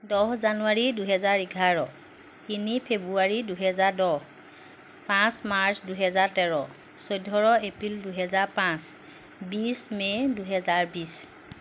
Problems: background sounds at intervals